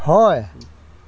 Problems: none marked